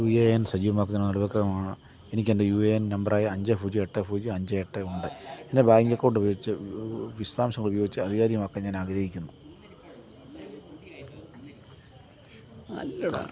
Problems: constant background noise, background conversations at intervals, low volume